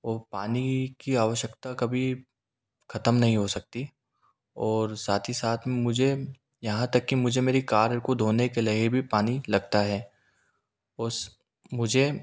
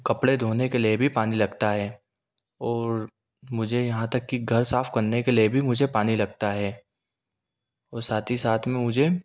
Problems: none marked